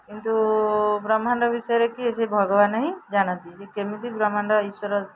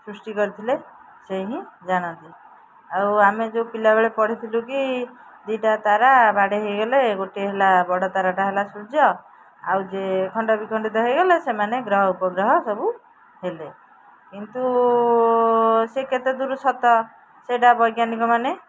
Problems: background sounds at intervals, background conversations at intervals